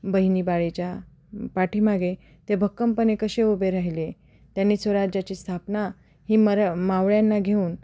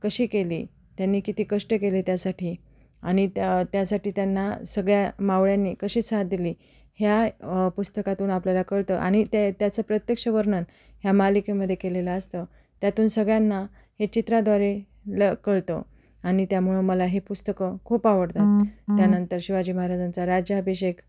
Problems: background sounds at intervals, background conversations at intervals